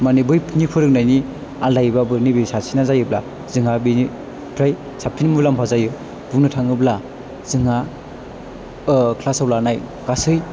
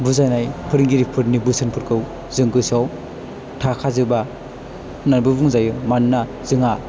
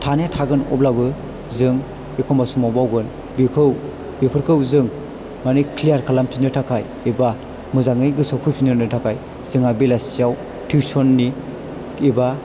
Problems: low volume